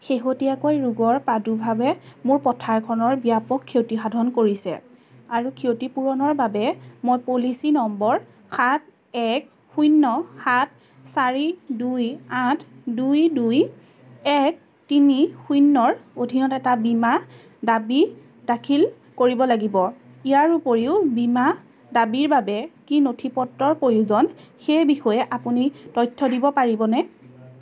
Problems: constant background noise, background conversations at intervals